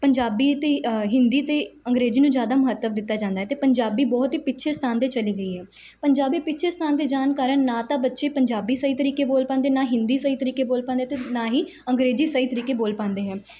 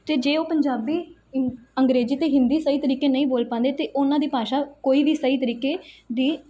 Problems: background sounds at intervals